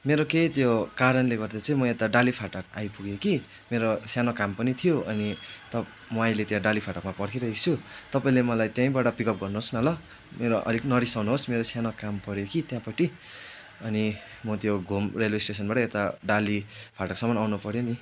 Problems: constant background noise